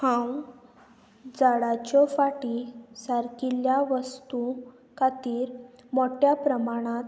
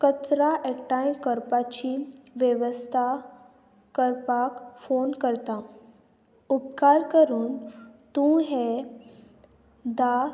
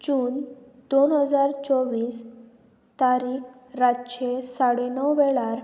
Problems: constant background noise